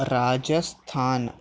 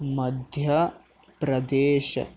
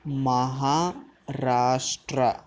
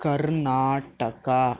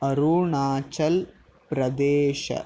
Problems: none marked